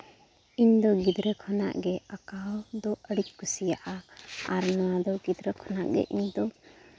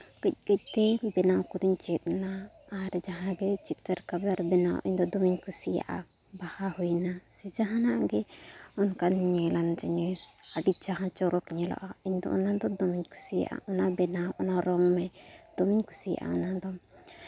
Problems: constant background noise